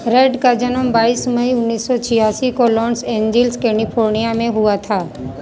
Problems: constant background noise, continuous background conversations